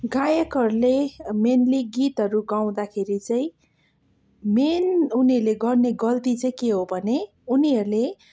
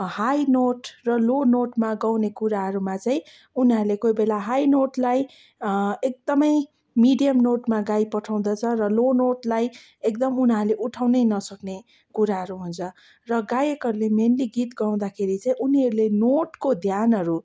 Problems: none marked